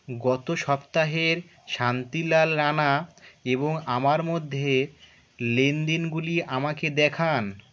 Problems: none marked